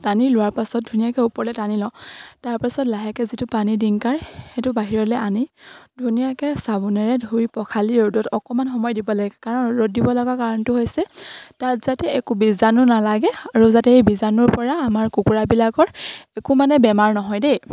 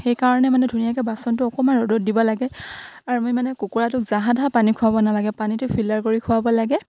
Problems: none marked